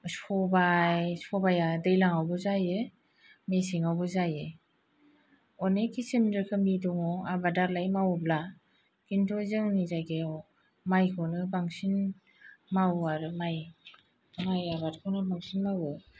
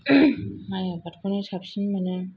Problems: none marked